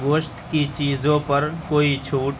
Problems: constant background noise